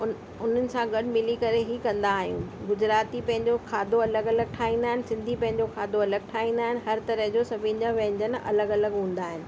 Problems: constant background noise, echo